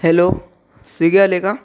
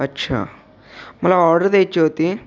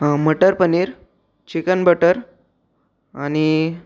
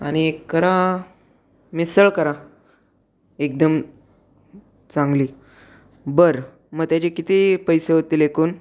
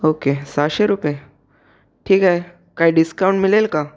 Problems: background sounds at intervals